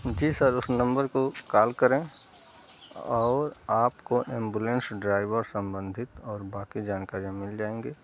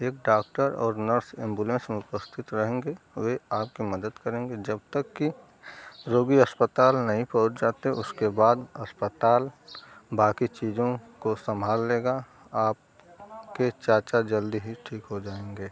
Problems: none marked